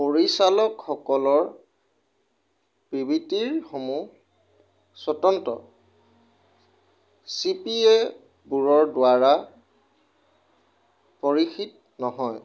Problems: none marked